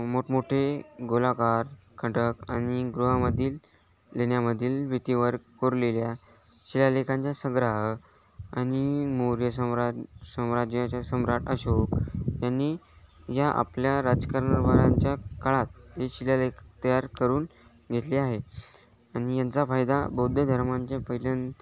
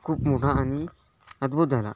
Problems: none marked